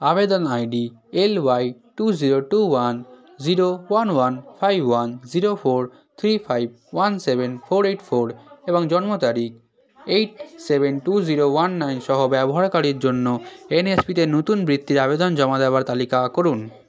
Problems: continuous background conversations